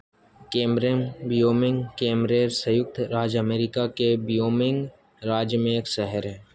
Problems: constant background noise